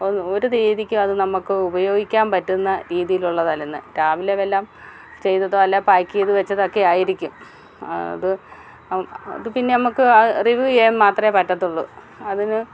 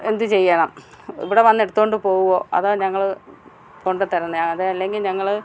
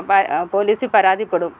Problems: background sounds at intervals